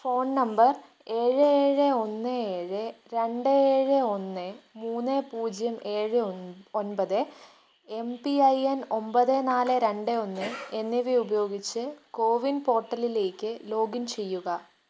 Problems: background sounds at intervals